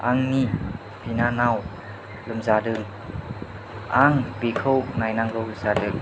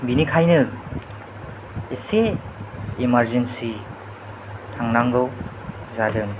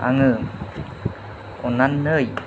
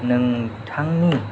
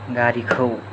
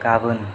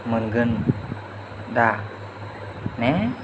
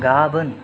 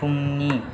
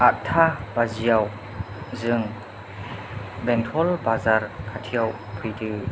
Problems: low volume